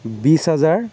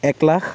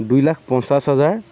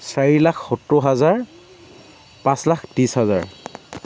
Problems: constant background noise